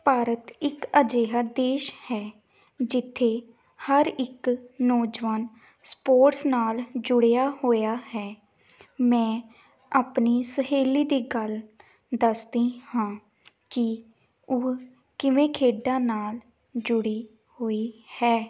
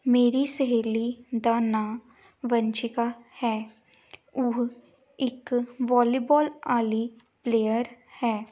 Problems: background sounds at intervals